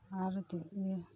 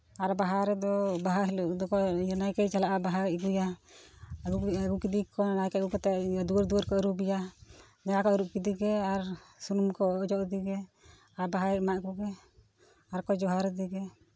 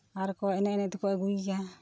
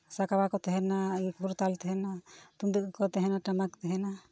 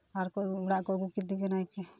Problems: background sounds at intervals, background conversations at intervals